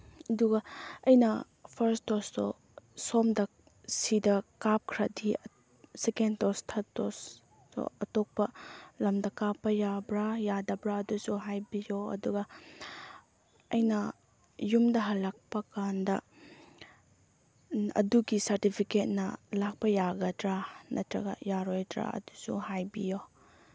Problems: low volume